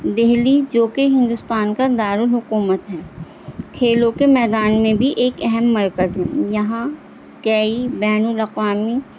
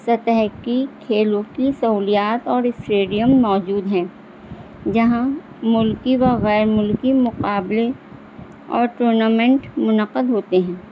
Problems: constant background noise